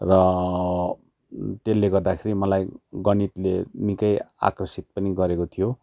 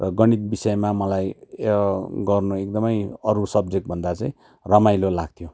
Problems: constant background noise